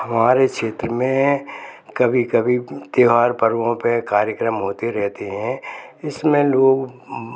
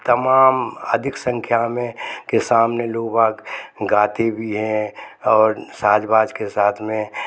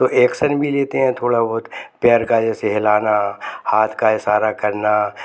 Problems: constant background noise, background conversations at intervals